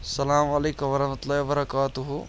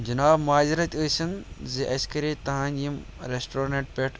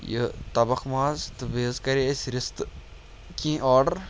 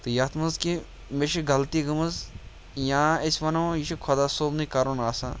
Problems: none marked